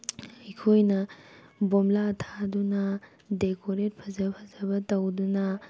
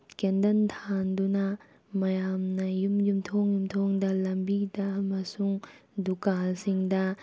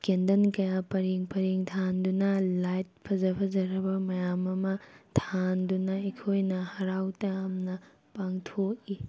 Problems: background sounds at intervals